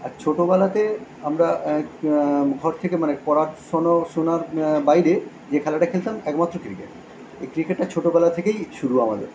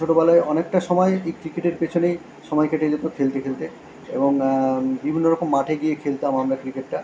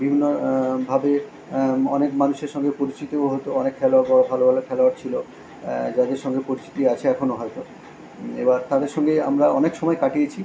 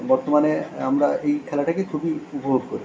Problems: none marked